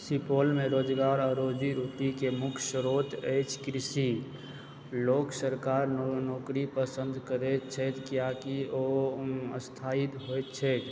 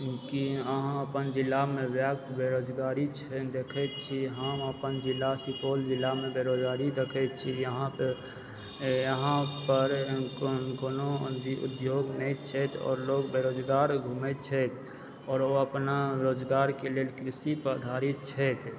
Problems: background sounds at intervals, low volume